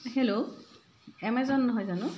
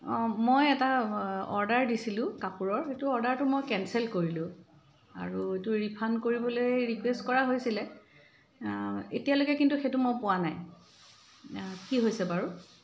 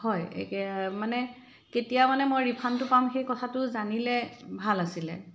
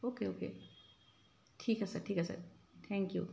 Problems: background sounds at intervals